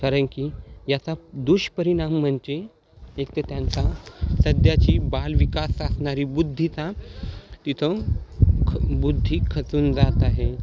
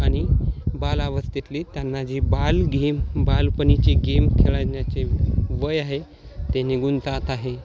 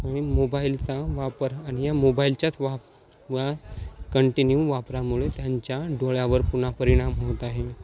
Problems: none marked